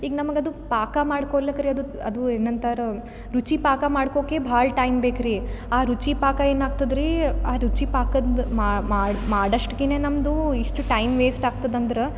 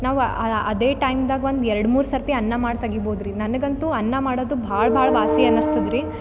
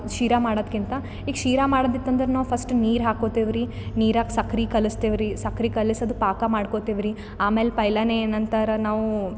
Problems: none marked